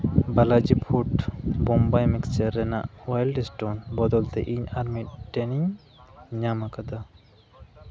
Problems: none marked